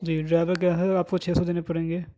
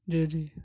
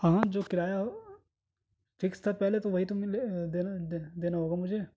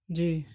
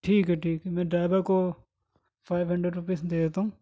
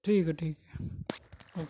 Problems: none marked